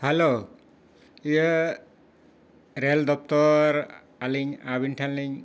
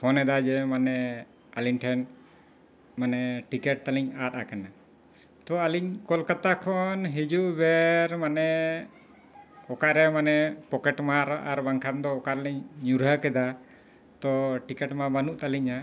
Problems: background sounds at intervals, background conversations at intervals